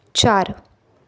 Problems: background sounds at intervals, continuous background conversations